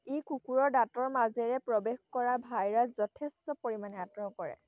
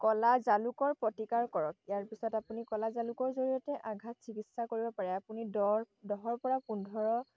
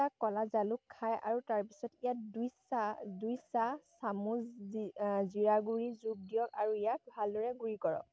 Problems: background sounds at intervals